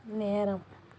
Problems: low volume